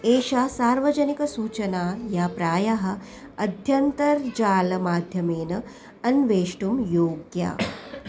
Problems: background sounds at intervals